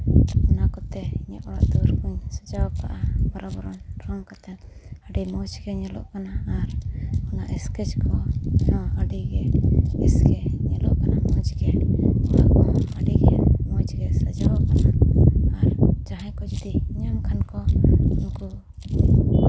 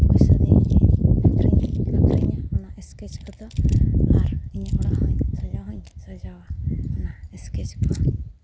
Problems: constant background noise